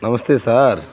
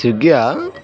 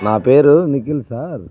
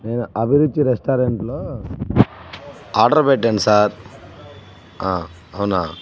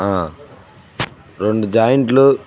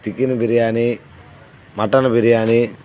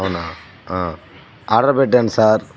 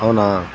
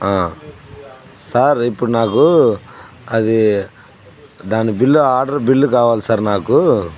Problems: background sounds at intervals, background conversations at intervals